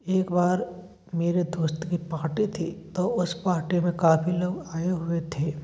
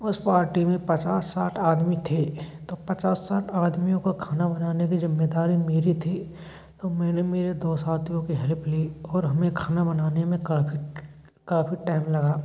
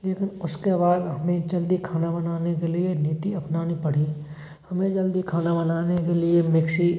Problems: constant background noise